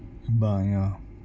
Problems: constant background noise